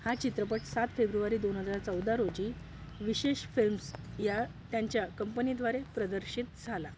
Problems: none marked